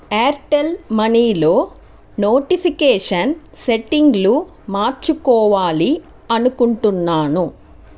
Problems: constant background noise